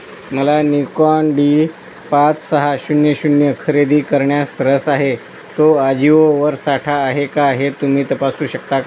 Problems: constant background noise